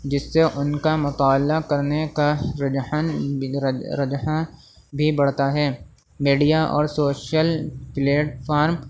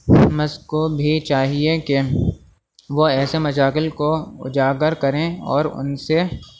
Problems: constant background noise, low volume